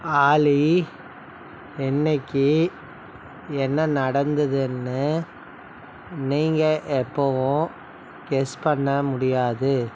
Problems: constant background noise